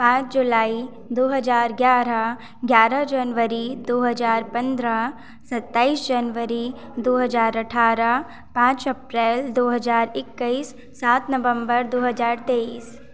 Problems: none marked